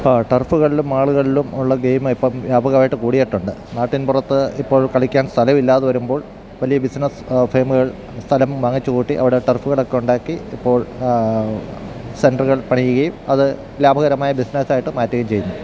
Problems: constant background noise